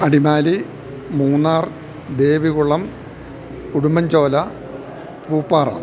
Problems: constant background noise